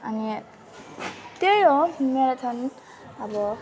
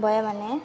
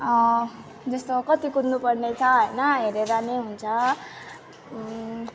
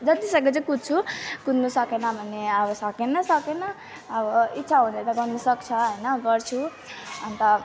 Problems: continuous background conversations